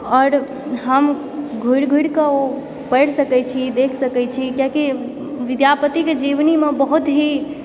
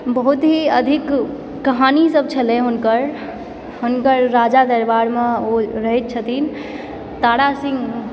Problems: background sounds at intervals, background conversations at intervals